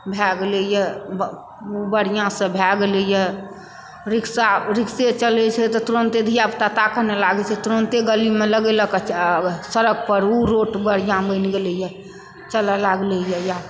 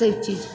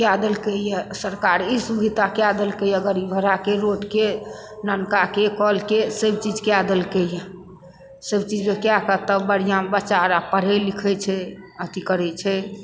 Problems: background sounds at intervals